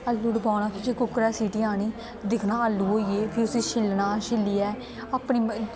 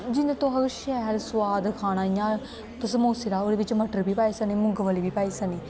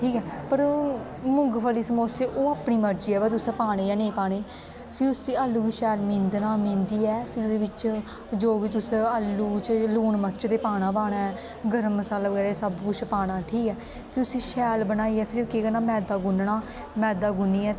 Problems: constant background noise